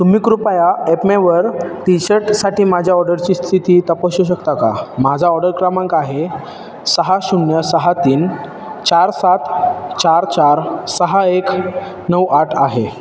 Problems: none marked